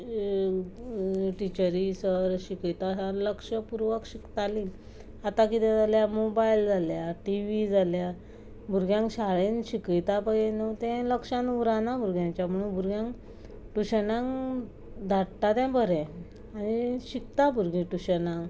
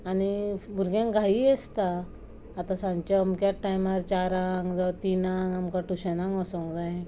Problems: constant background noise